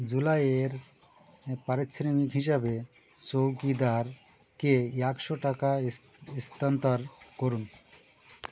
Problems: constant background noise